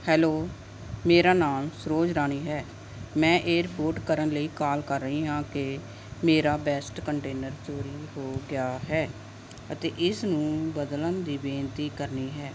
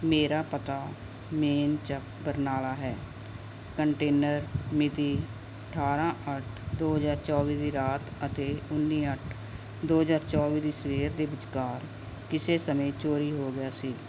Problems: none marked